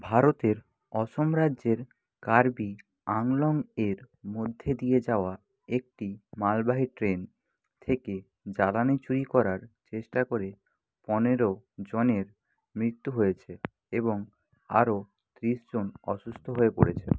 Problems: background sounds at intervals